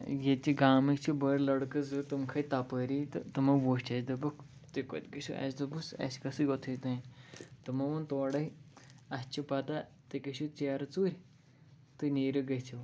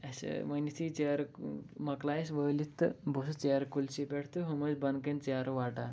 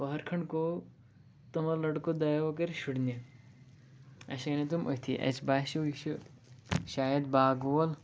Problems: none marked